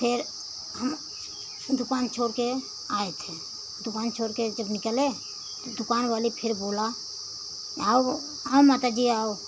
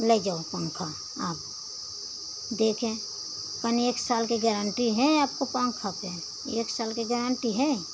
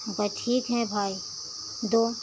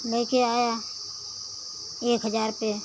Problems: none marked